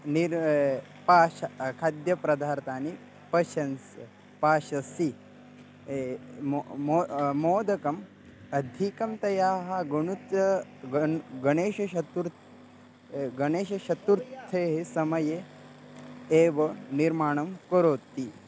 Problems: constant background noise